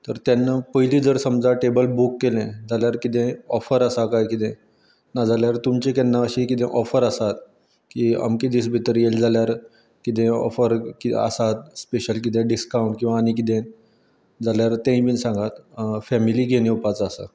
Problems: background sounds at intervals